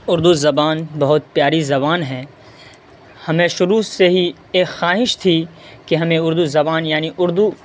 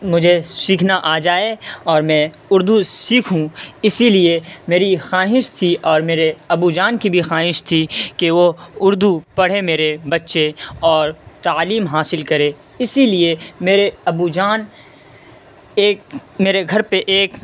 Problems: constant background noise, background conversations at intervals